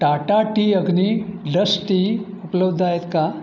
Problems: none marked